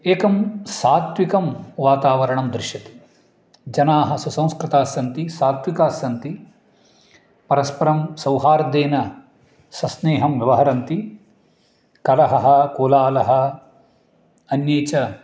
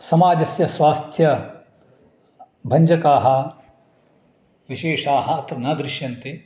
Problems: none marked